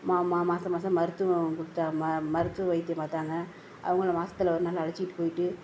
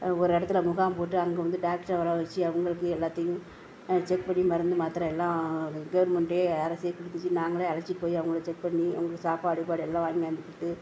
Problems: background sounds at intervals